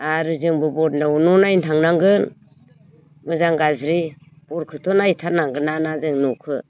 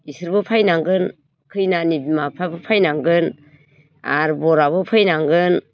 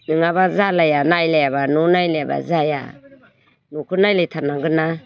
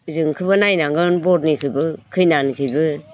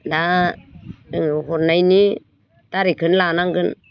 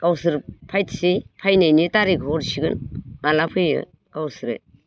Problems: none marked